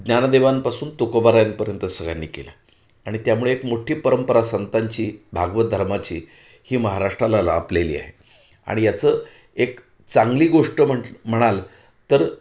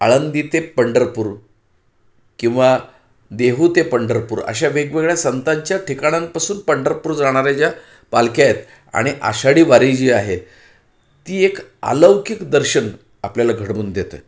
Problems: background sounds at intervals